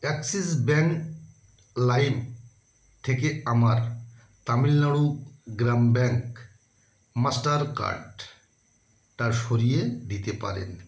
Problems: constant background noise